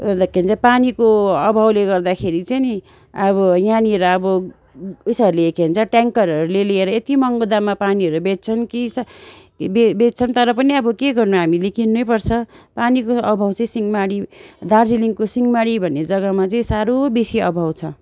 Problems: constant background noise